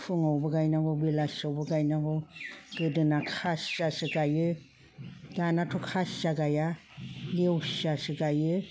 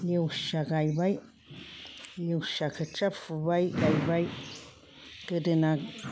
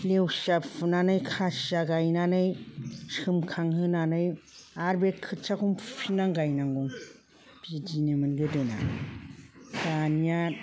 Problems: none marked